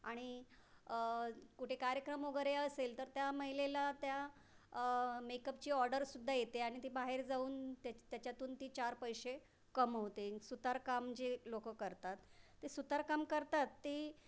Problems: background sounds at intervals